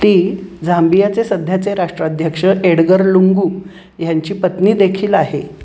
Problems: constant background noise